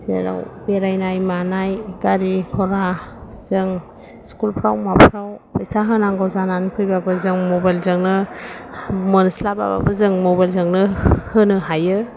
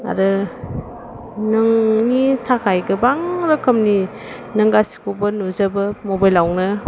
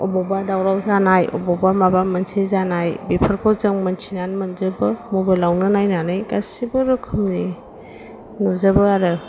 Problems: none marked